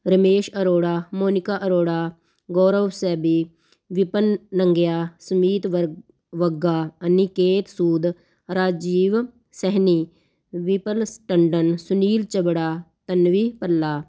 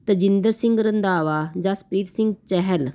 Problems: constant background noise